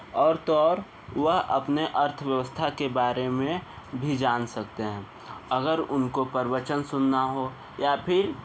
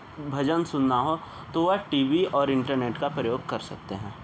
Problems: constant background noise